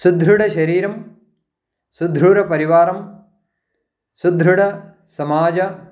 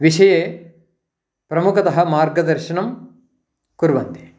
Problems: background sounds at intervals